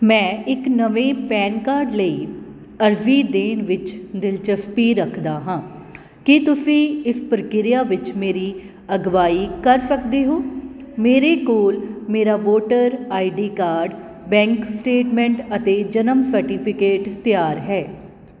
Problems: none marked